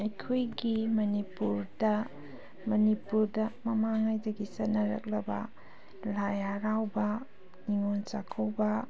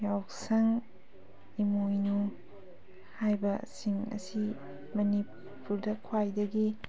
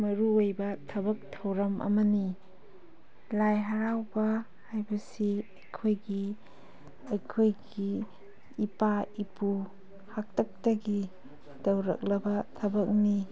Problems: background sounds at intervals